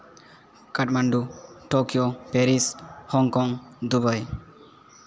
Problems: none marked